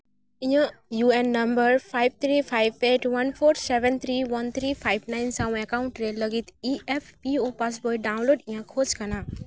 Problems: none marked